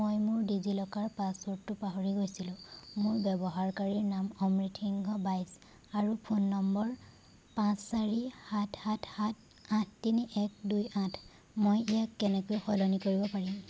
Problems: background sounds at intervals